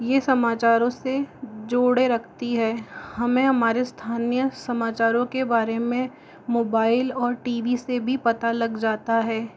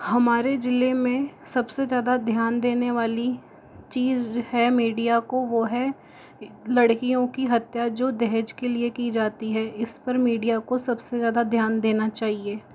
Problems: background sounds at intervals